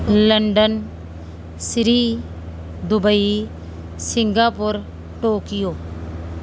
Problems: constant background noise